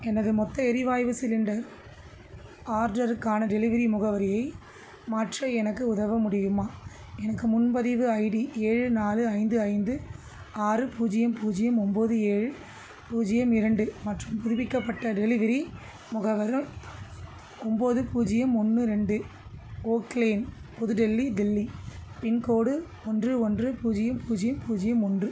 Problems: constant background noise, background conversations at intervals